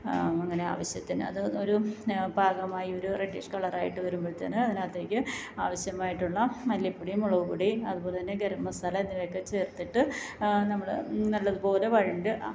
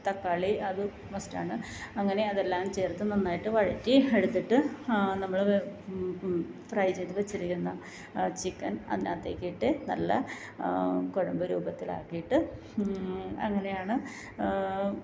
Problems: low volume